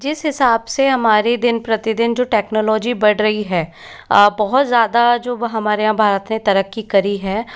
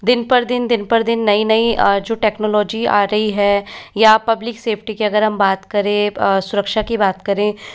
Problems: constant background noise